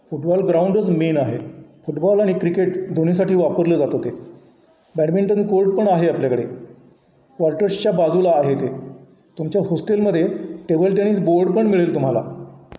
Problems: constant background noise